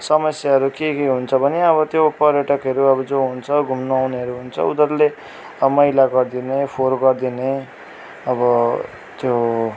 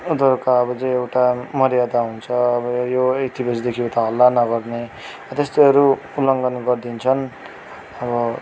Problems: constant background noise